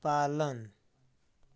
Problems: none marked